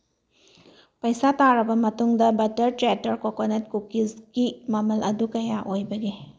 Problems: none marked